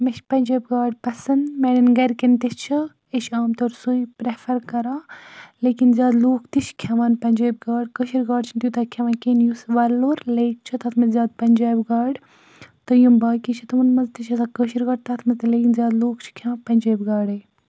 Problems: none marked